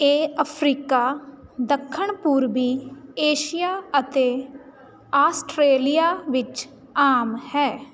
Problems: none marked